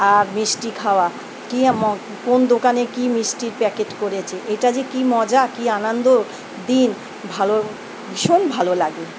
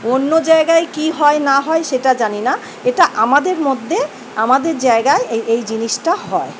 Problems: none marked